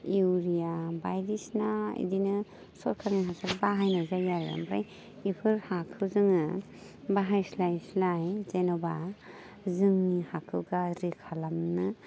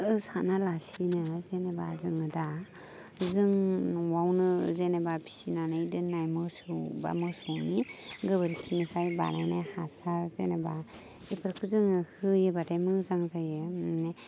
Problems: none marked